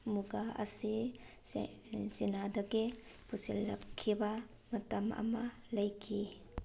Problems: none marked